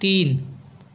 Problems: background sounds at intervals